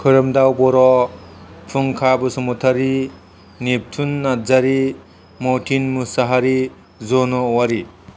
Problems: none marked